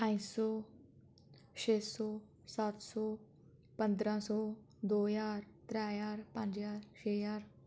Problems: background sounds at intervals